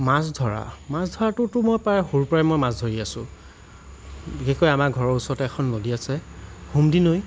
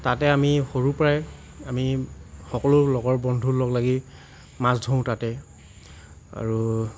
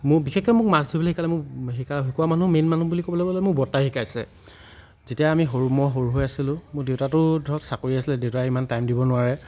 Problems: constant background noise